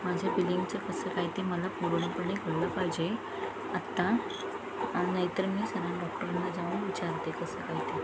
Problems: constant background noise, continuous background conversations